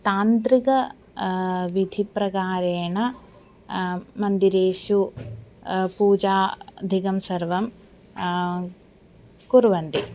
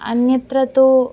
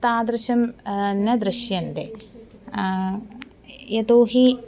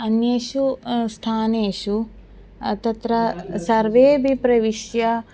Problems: continuous background conversations